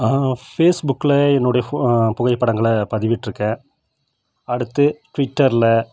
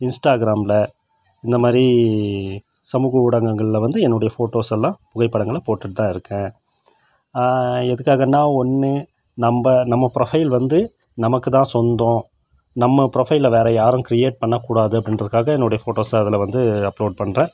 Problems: none marked